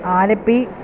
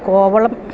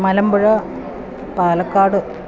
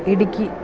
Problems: constant background noise